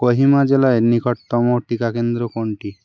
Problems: constant background noise